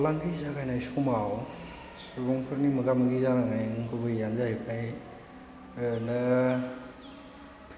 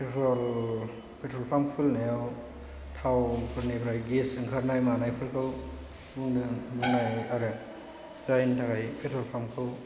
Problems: constant background noise, low volume